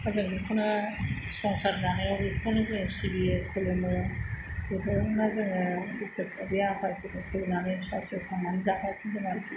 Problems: constant background noise